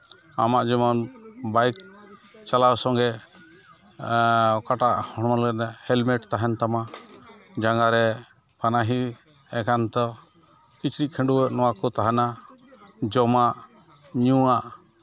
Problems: constant background noise